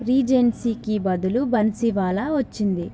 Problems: constant background noise